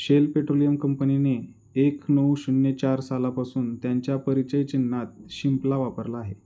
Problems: constant background noise